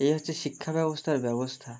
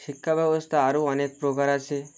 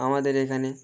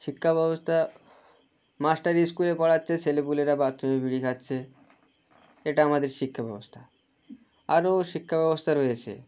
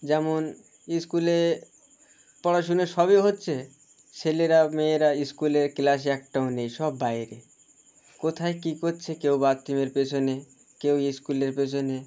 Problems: constant background noise